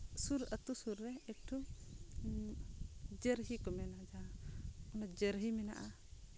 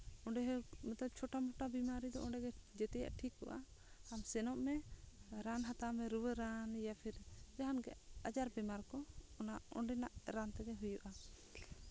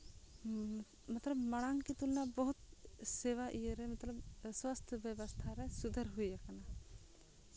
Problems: low volume